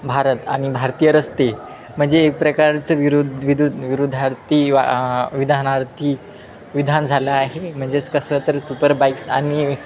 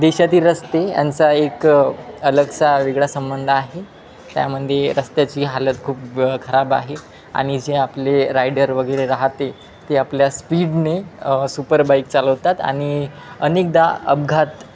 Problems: constant background noise, continuous background conversations